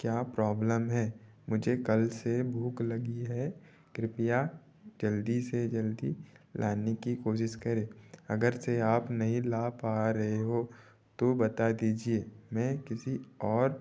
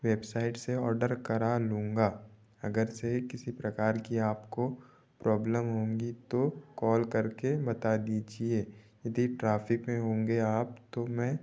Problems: none marked